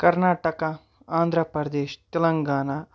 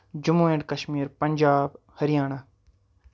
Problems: none marked